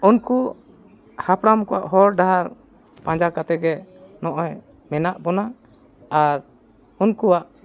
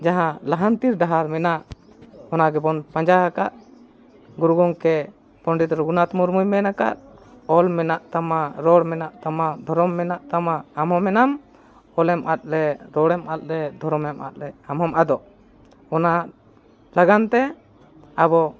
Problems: constant background noise